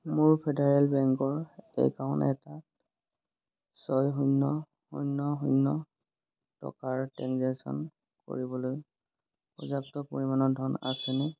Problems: constant background noise